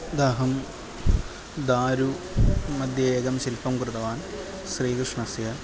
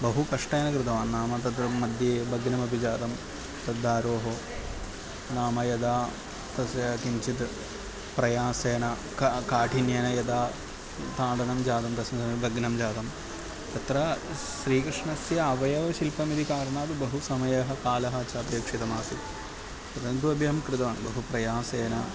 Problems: constant background noise